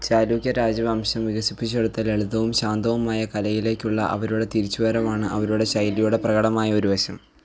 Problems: background sounds at intervals